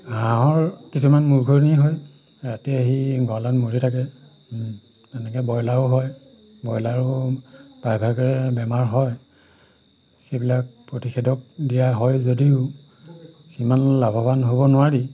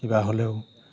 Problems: background sounds at intervals